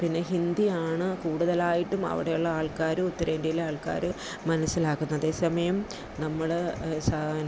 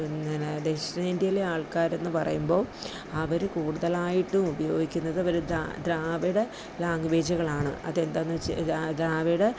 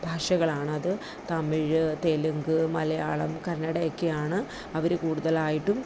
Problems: none marked